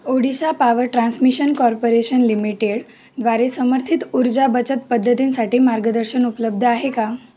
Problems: none marked